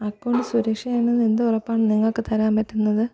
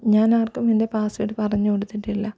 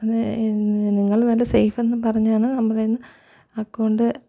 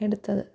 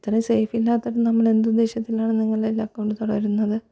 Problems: none marked